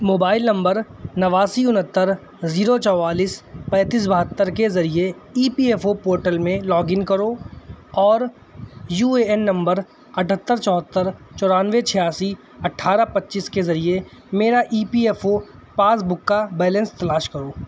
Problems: constant background noise